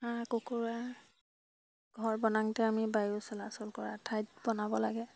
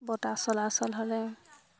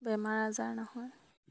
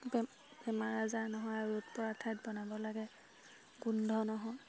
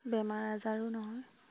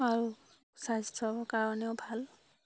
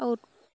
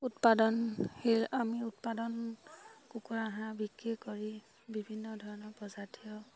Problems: none marked